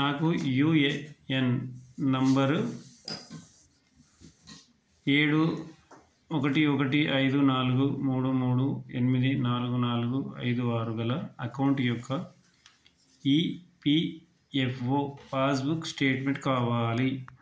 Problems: none marked